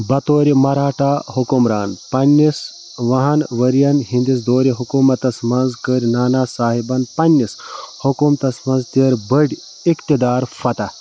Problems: background sounds at intervals